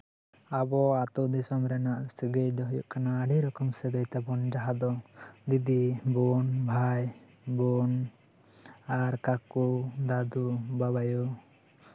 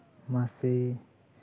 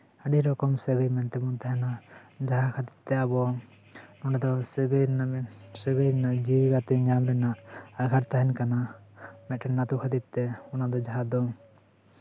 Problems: background sounds at intervals